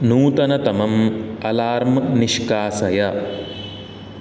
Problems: background sounds at intervals